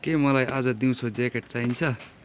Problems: constant background noise